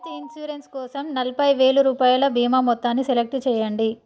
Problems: none marked